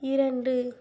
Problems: low volume